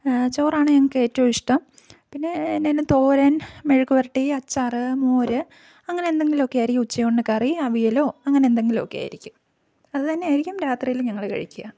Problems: none marked